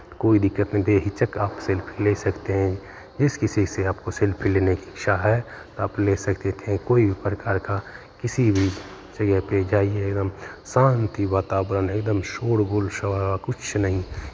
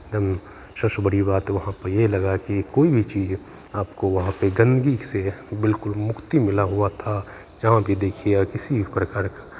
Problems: background sounds at intervals